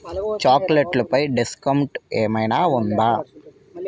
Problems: continuous background conversations